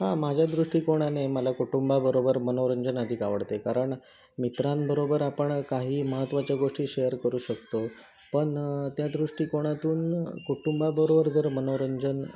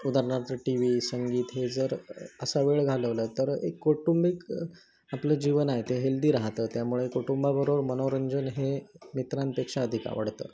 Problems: constant background noise, continuous background conversations